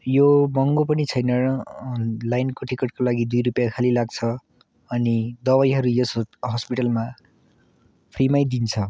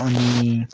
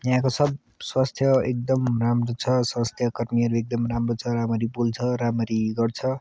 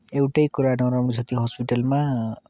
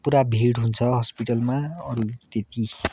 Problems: background sounds at intervals